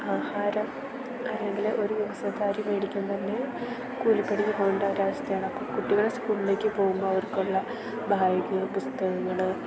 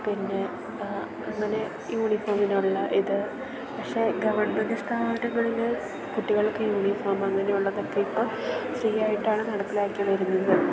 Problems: constant background noise